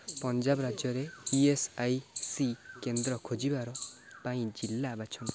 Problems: none marked